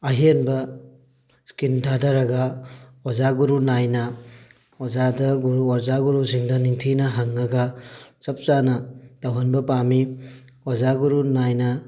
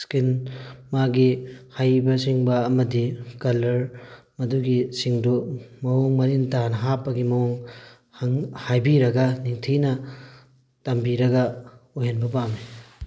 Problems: background sounds at intervals